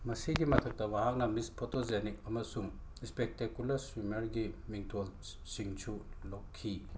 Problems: background sounds at intervals